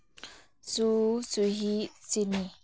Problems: none marked